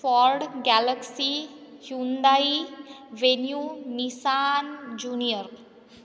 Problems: background sounds at intervals, echo